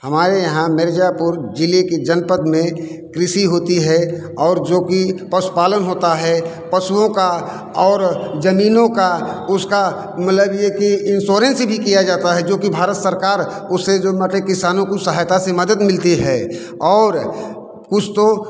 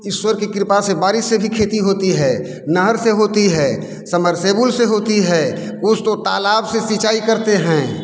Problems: constant background noise, echo